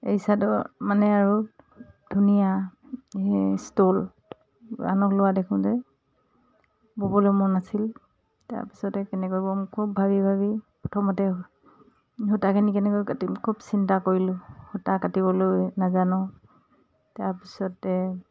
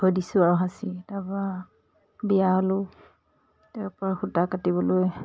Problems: none marked